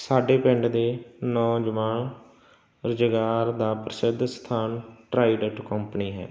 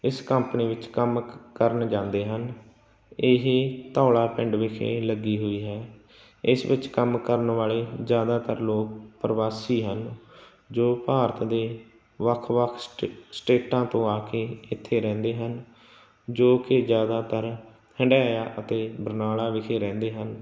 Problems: none marked